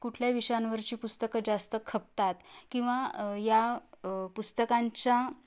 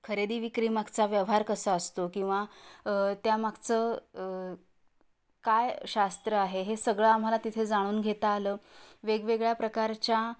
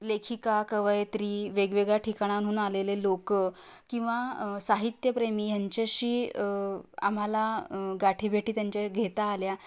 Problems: constant background noise